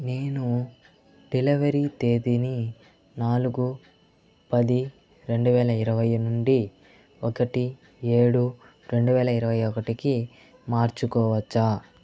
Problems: constant background noise